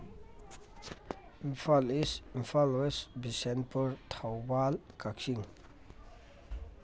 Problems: background conversations at intervals